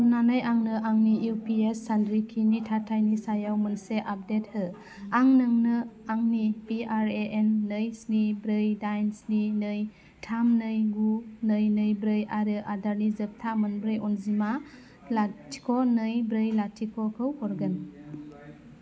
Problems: none marked